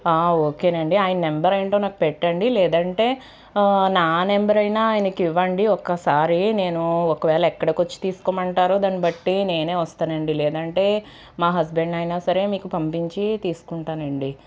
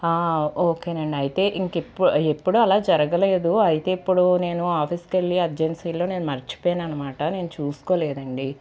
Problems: constant background noise, background conversations at intervals